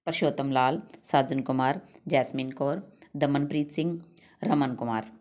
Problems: none marked